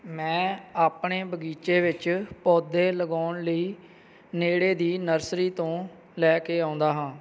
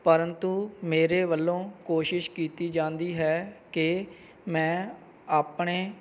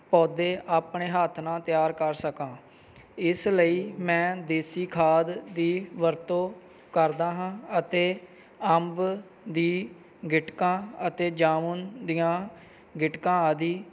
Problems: none marked